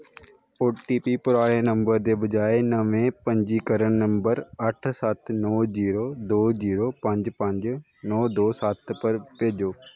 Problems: background sounds at intervals